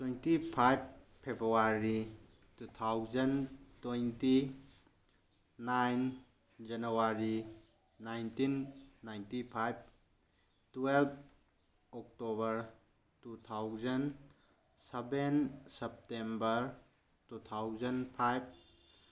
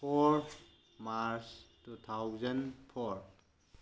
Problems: low volume